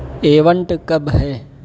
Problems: constant background noise